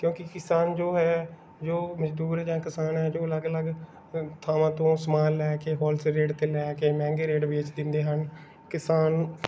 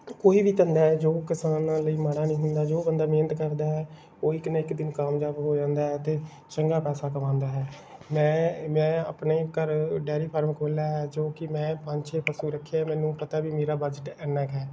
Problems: background sounds at intervals